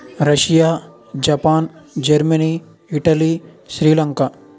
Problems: background sounds at intervals, background conversations at intervals